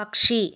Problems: none marked